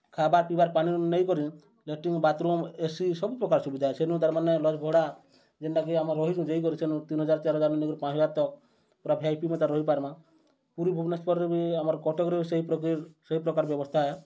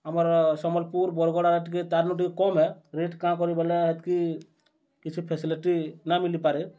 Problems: none marked